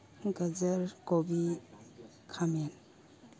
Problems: low volume